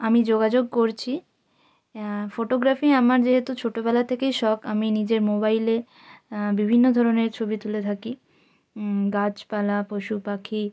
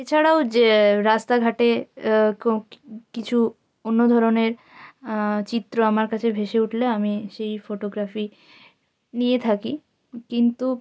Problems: constant background noise